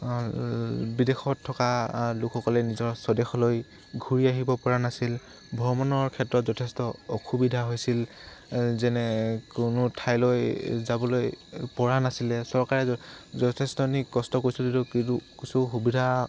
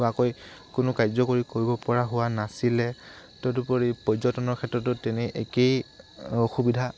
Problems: constant background noise